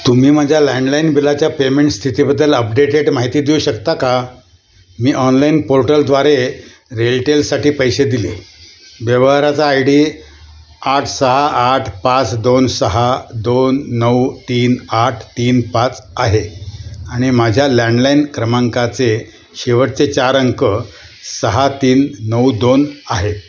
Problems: constant background noise